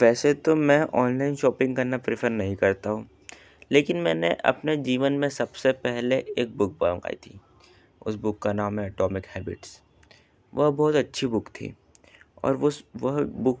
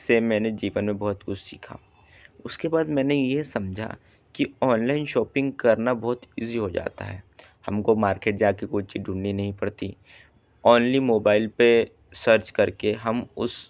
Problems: background sounds at intervals